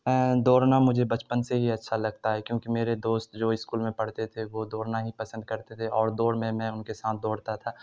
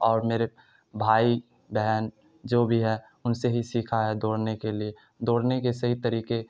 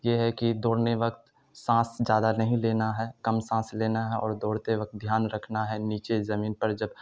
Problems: none marked